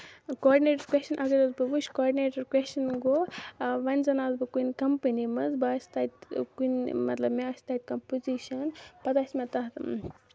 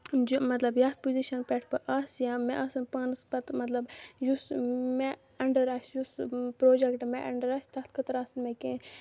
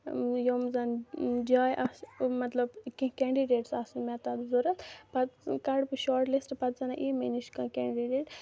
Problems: low volume